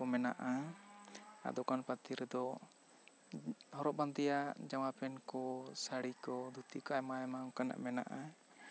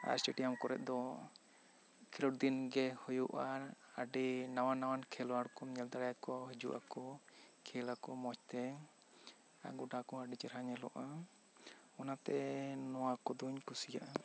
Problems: none marked